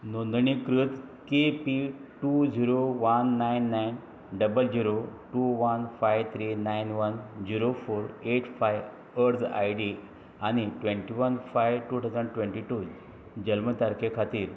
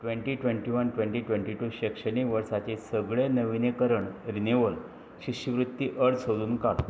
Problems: none marked